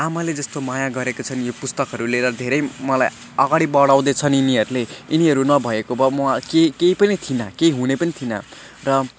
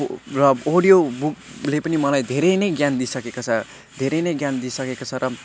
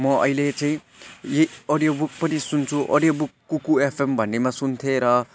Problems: constant background noise